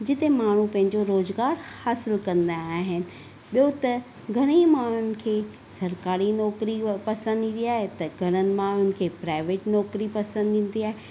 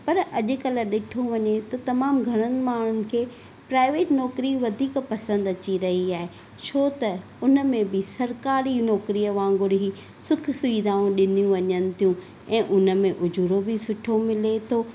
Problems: none marked